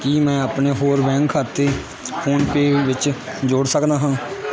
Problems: constant background noise, continuous background conversations